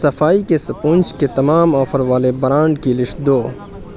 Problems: constant background noise